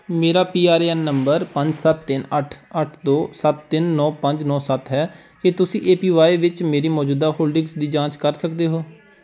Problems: background sounds at intervals